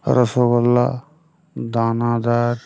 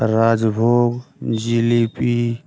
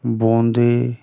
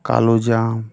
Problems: none marked